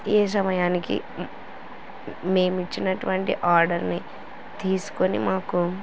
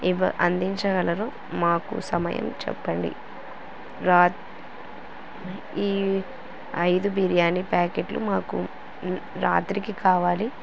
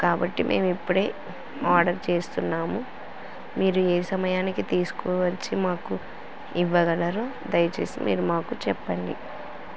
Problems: constant background noise